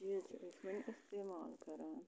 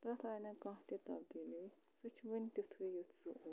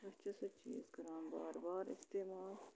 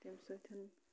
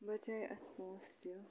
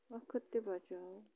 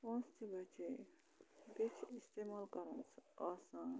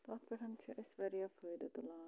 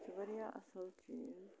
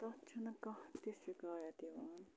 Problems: low volume